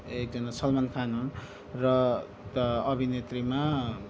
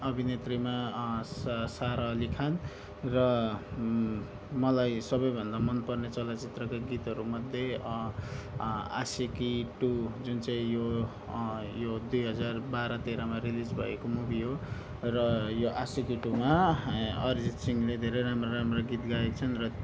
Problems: none marked